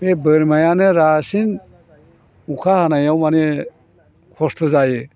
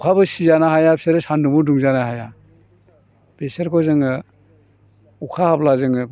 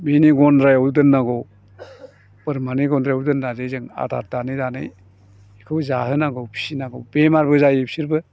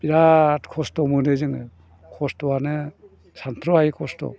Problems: low volume